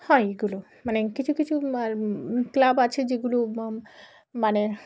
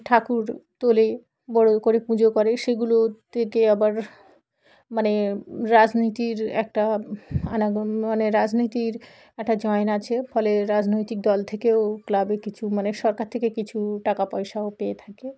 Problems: background sounds at intervals, background conversations at intervals